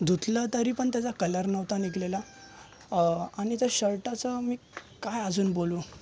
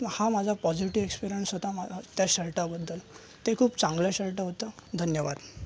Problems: constant background noise, continuous background conversations